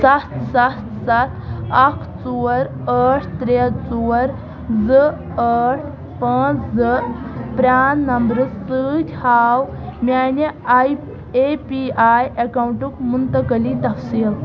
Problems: constant background noise